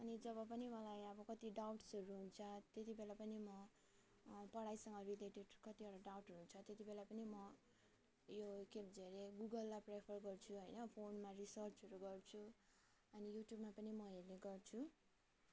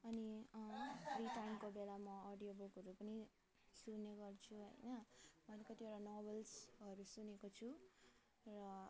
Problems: background sounds at intervals, low volume